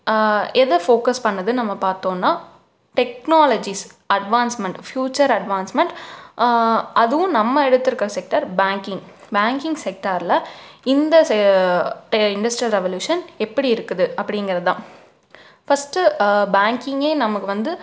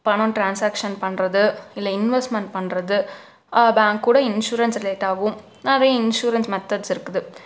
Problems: none marked